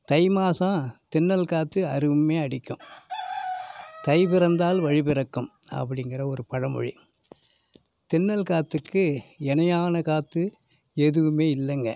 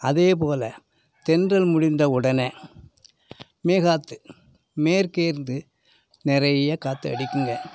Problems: background sounds at intervals